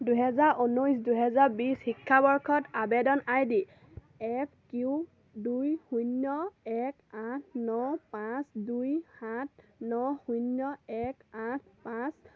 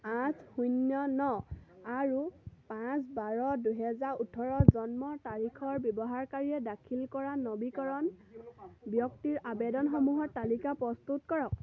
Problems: none marked